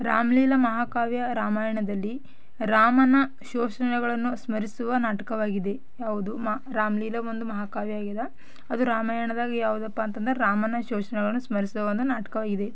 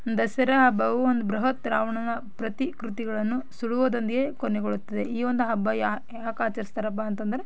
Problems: background sounds at intervals